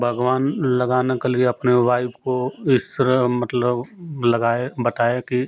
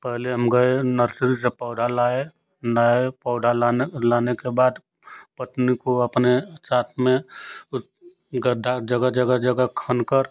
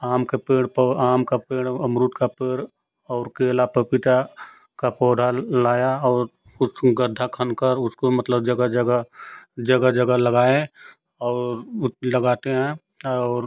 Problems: constant background noise